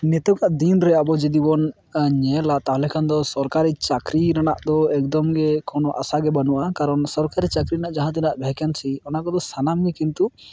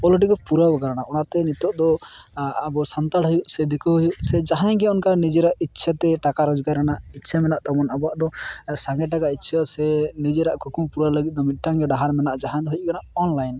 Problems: none marked